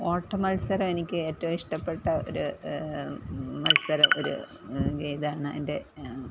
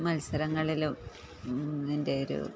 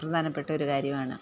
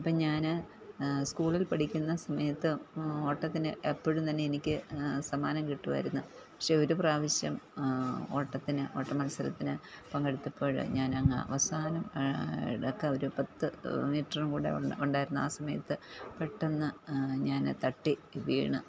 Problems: low volume